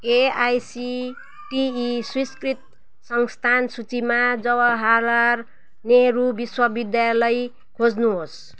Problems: constant background noise